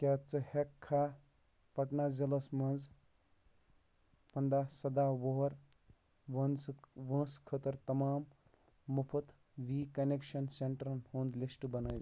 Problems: background sounds at intervals